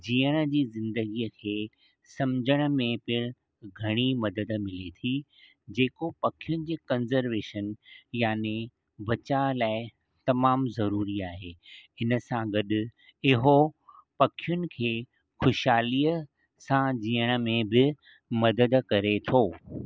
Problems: none marked